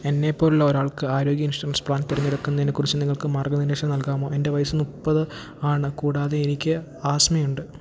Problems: none marked